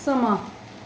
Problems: none marked